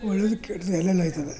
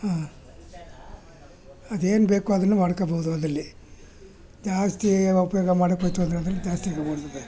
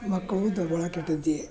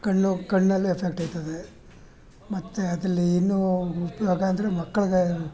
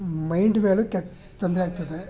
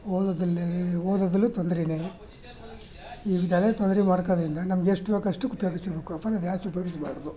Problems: background conversations at intervals